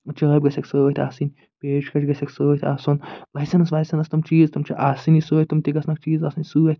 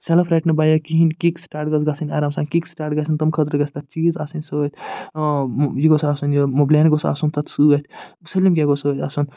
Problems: none marked